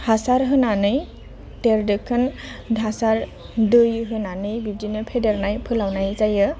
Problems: none marked